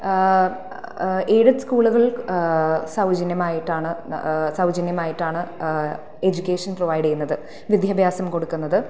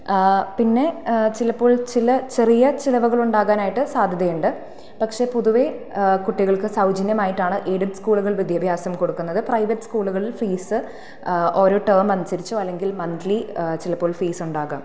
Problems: none marked